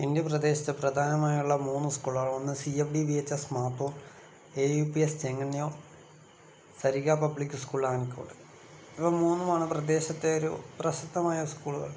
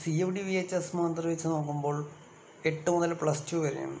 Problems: constant background noise, low volume